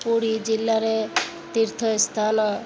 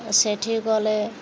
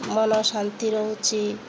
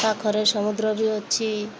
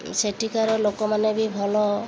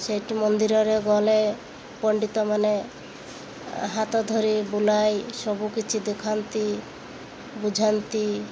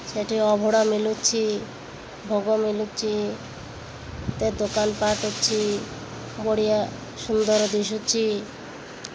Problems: none marked